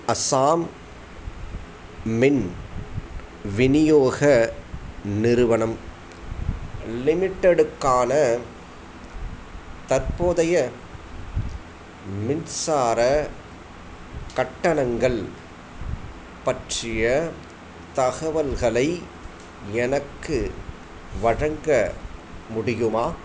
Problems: none marked